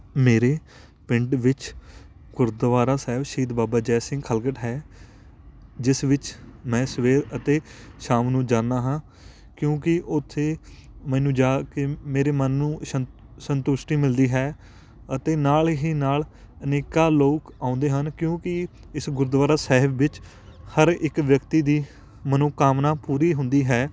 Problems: constant background noise, background conversations at intervals